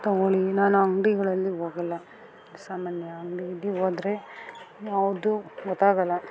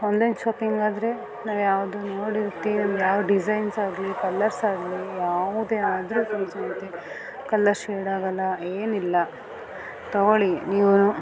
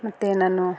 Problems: background sounds at intervals